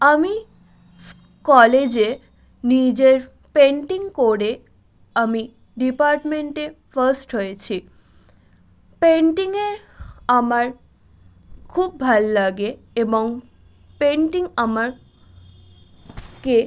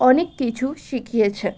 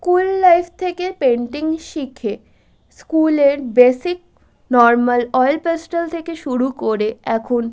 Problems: constant background noise